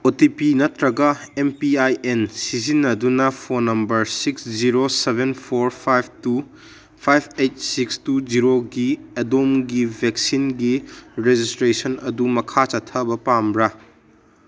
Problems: none marked